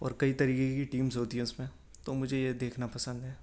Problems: none marked